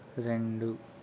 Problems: none marked